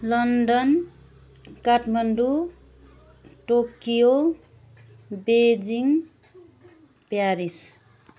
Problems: none marked